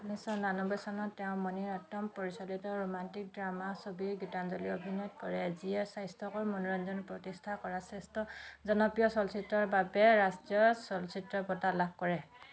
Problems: background sounds at intervals, continuous background conversations